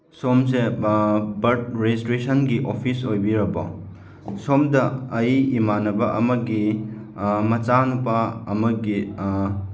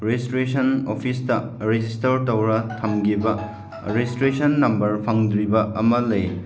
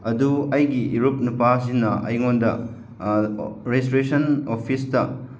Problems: none marked